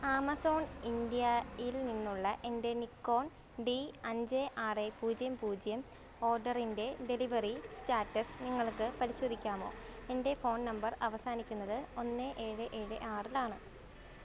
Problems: none marked